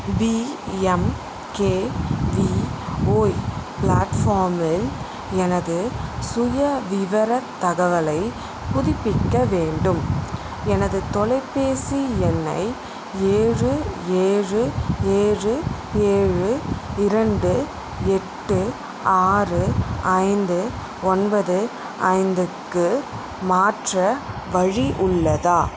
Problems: constant background noise